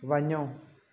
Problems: constant background noise